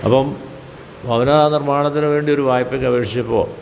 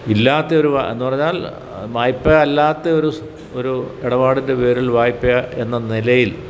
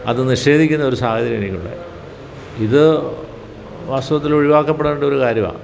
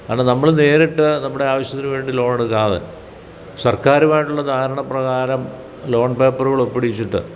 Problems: background sounds at intervals